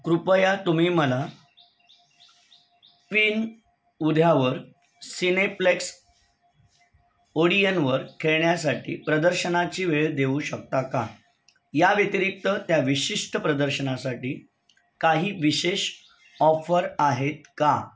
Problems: none marked